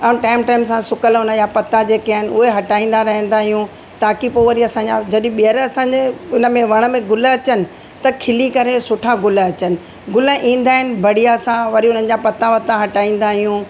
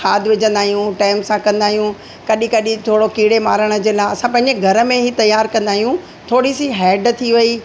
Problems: constant background noise, echo